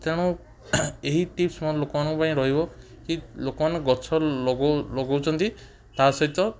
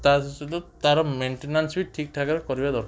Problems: background sounds at intervals